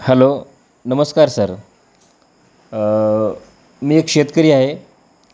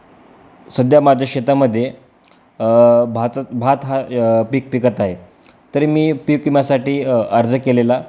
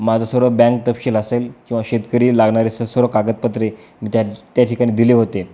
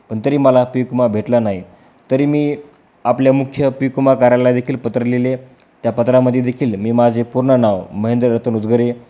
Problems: background sounds at intervals